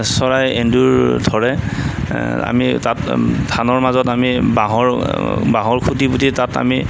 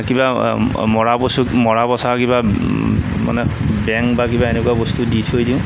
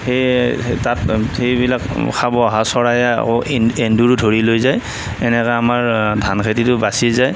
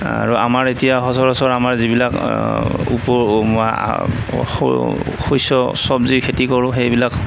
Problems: constant background noise